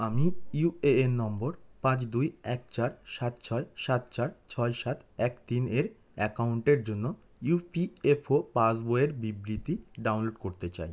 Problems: none marked